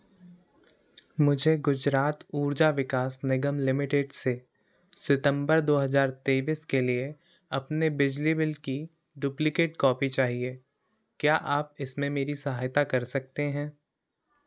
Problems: constant background noise